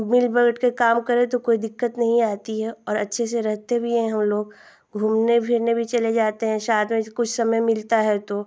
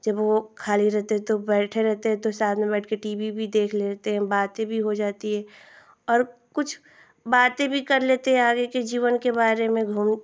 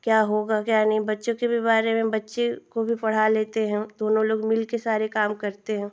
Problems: constant background noise